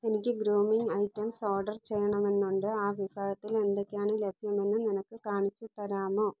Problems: none marked